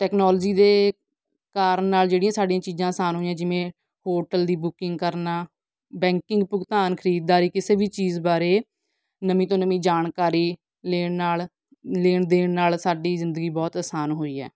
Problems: background sounds at intervals